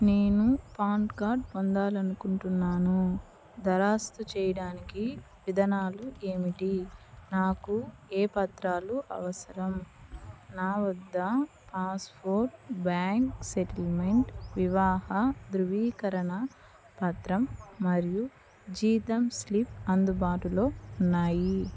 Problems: none marked